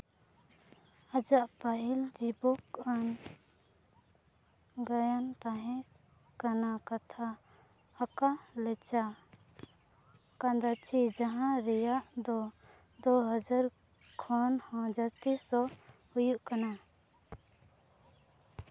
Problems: constant background noise